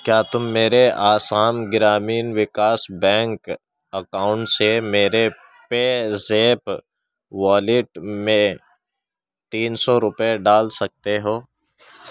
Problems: background sounds at intervals, background conversations at intervals